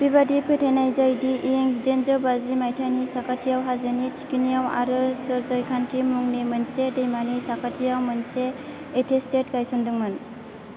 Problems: constant background noise